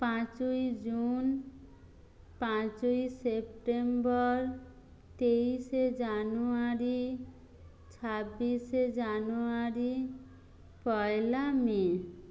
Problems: low volume